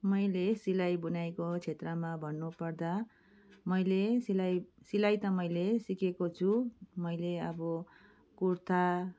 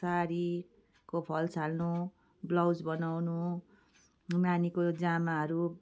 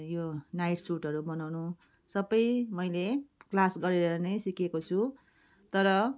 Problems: background sounds at intervals